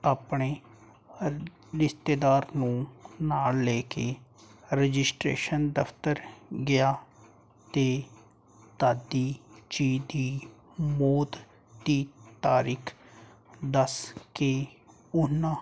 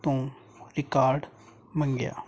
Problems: none marked